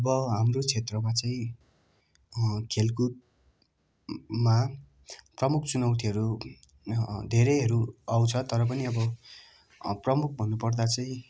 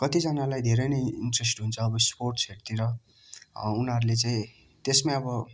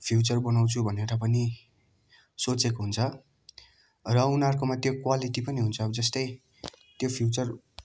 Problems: constant background noise